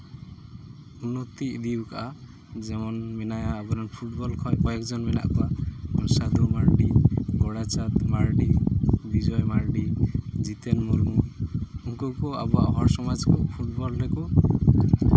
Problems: background sounds at intervals